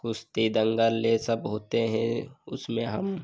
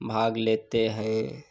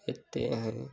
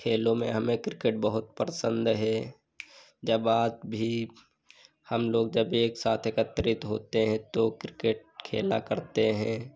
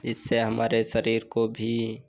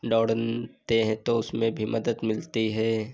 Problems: none marked